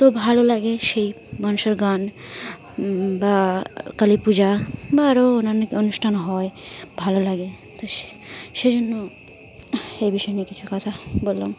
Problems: constant background noise, continuous background conversations